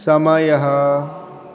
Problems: none marked